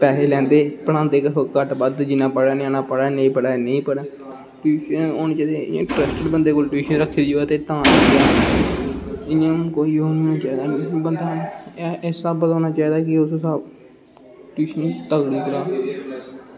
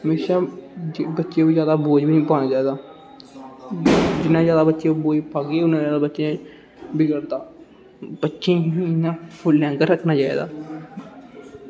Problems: constant background noise